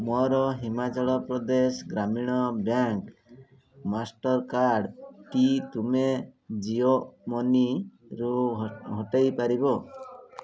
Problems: constant background noise, continuous background conversations